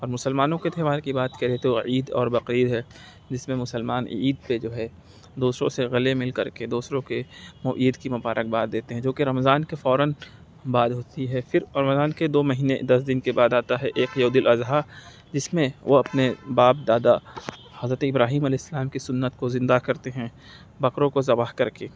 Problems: none marked